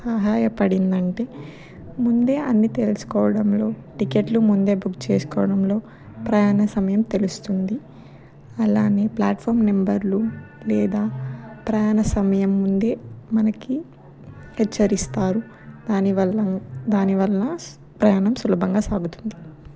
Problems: background sounds at intervals